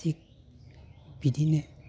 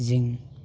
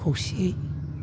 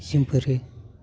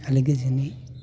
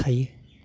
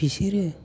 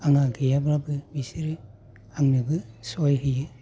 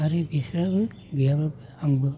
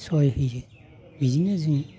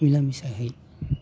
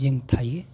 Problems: constant background noise